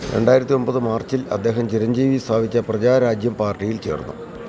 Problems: none marked